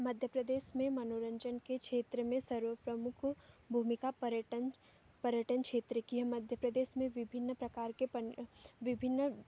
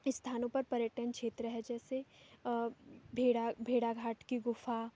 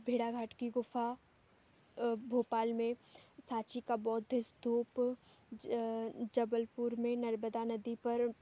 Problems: background sounds at intervals